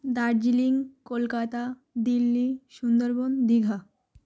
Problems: none marked